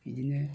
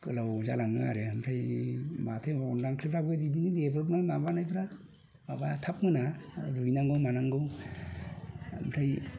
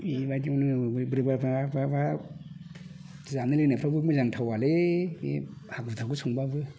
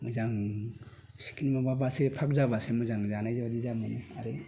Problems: constant background noise